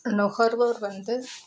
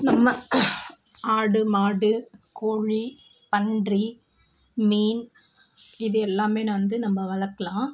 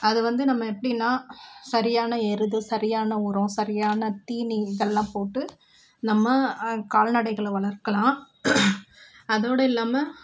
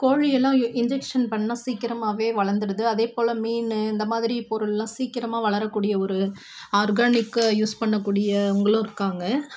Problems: constant background noise